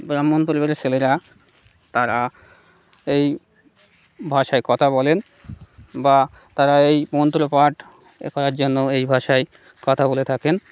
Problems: none marked